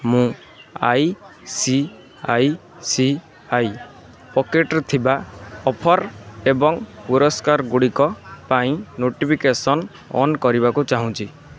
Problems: constant background noise, continuous background conversations